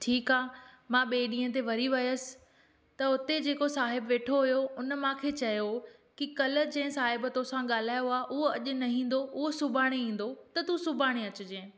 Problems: none marked